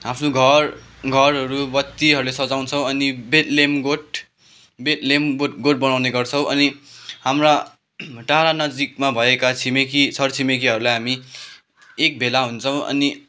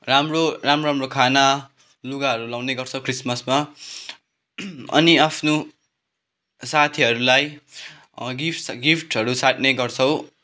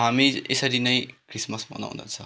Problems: background sounds at intervals